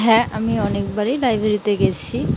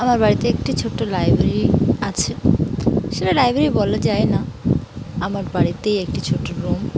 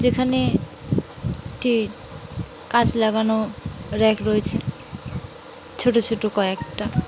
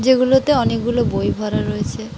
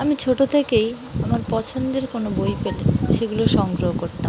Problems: constant background noise